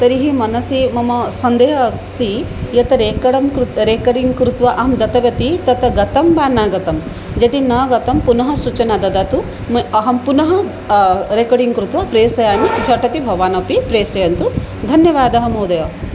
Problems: background sounds at intervals